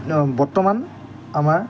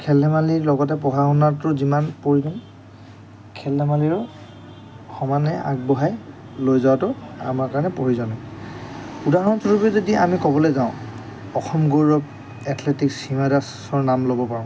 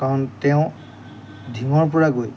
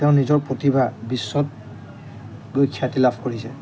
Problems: constant background noise